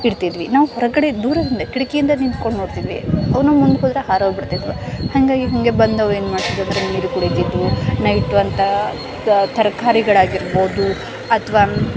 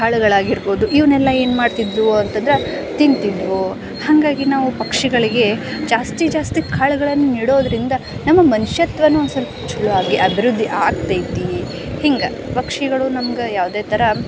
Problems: background sounds at intervals